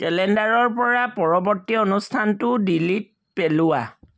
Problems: none marked